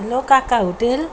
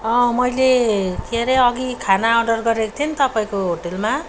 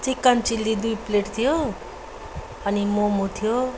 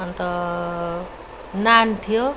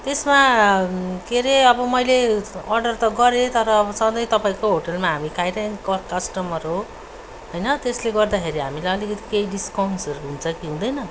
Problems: background sounds at intervals